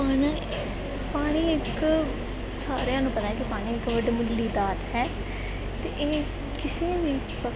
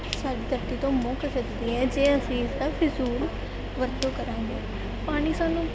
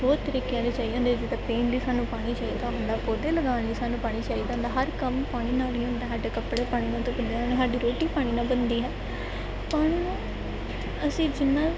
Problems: constant background noise